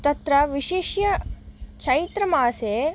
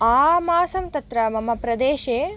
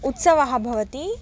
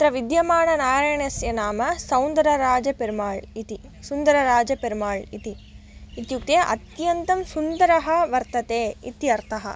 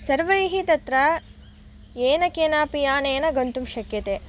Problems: background sounds at intervals